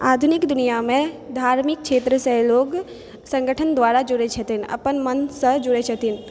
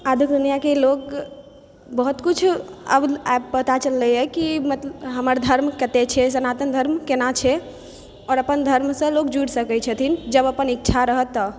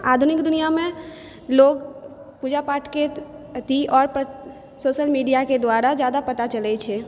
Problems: background sounds at intervals